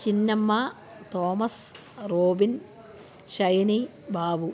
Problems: constant background noise